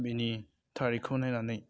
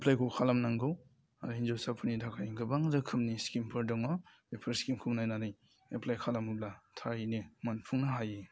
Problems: constant background noise